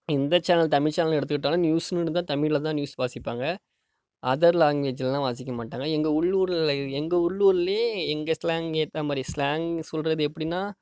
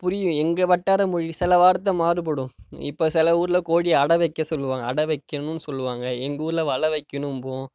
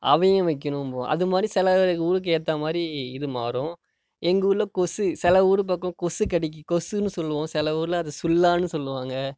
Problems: none marked